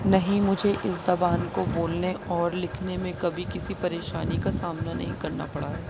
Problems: constant background noise